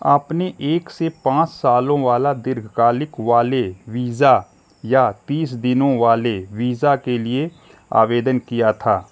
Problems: constant background noise